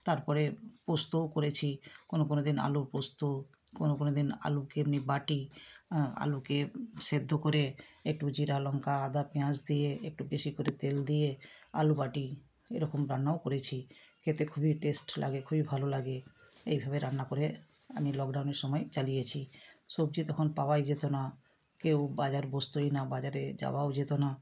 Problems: constant background noise